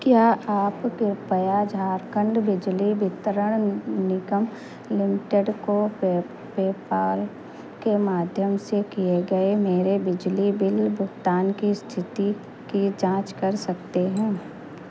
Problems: constant background noise